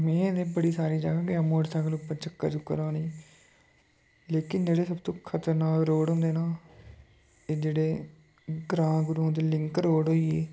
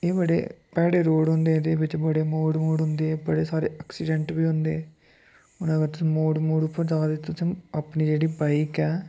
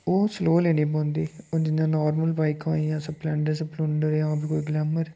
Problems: background sounds at intervals